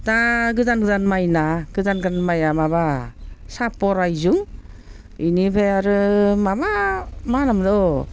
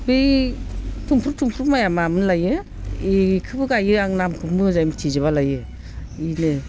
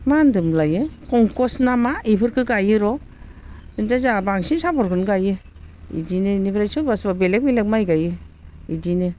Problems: constant background noise